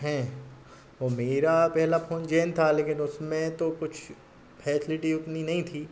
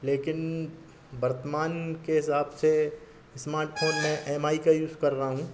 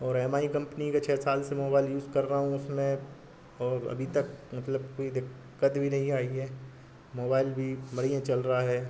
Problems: constant background noise